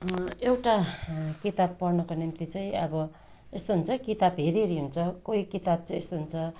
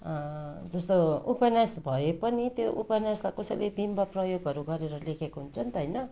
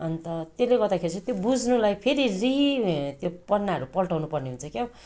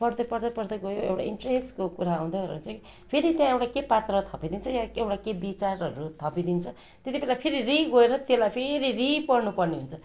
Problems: constant background noise